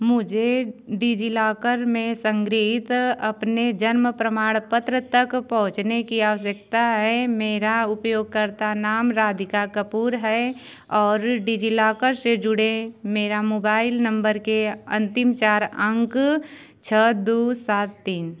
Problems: background sounds at intervals